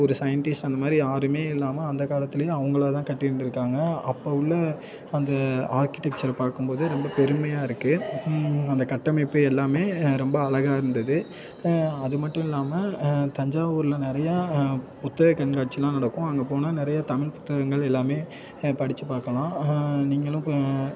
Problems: continuous background conversations